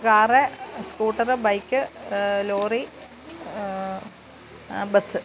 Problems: background sounds at intervals